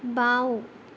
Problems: none marked